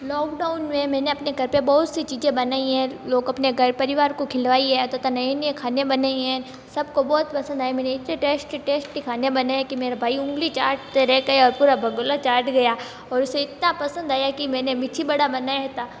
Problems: constant background noise